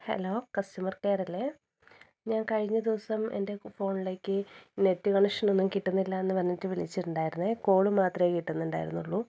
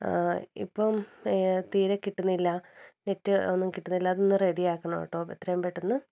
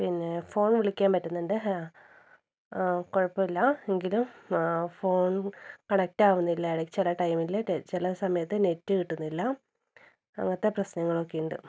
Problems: low volume